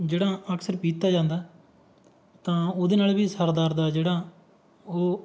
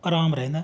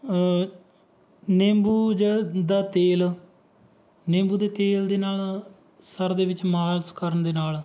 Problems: background sounds at intervals